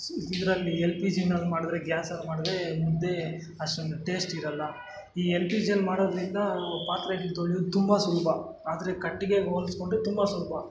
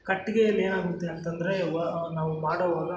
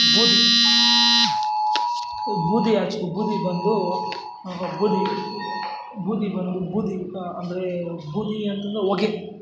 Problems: background sounds at intervals, background conversations at intervals